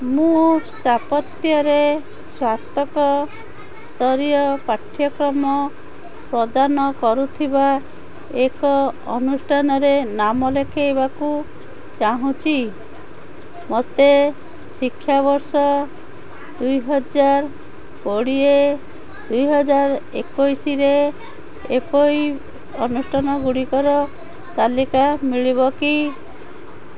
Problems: constant background noise, continuous background conversations